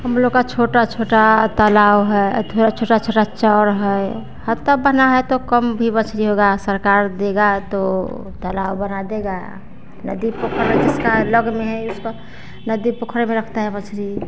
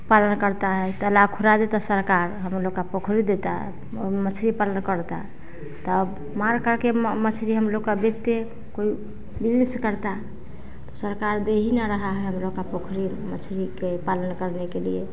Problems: none marked